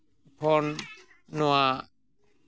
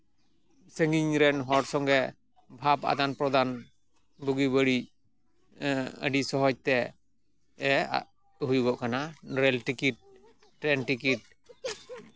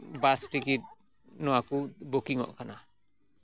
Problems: background sounds at intervals